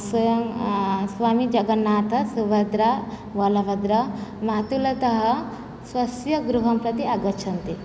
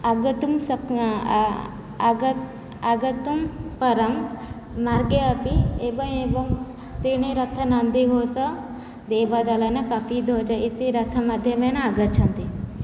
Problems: none marked